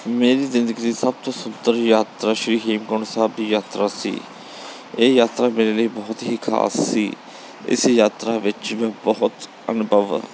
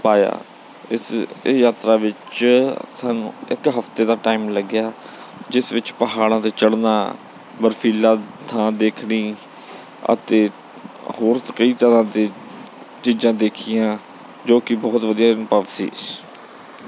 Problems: background sounds at intervals